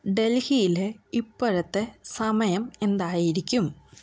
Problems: none marked